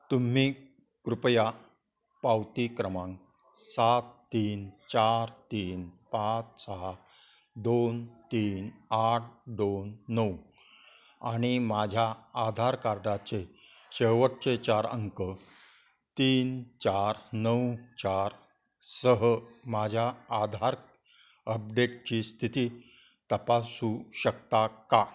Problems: background sounds at intervals, continuous background conversations